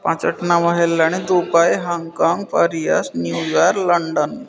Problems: constant background noise, continuous background conversations